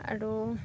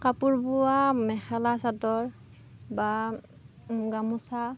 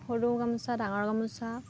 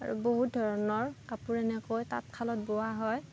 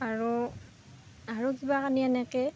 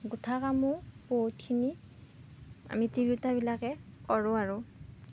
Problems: background sounds at intervals